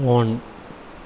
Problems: none marked